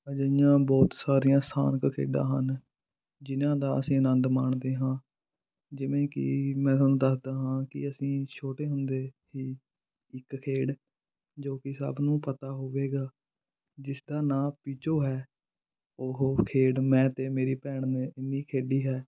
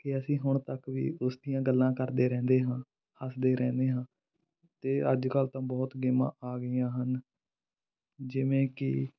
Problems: background sounds at intervals